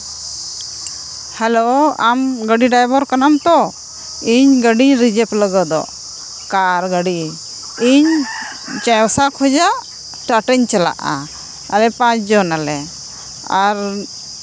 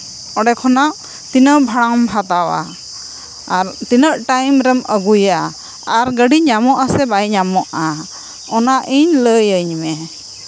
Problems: background sounds at intervals